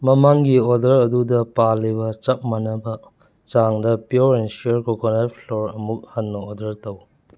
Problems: background sounds at intervals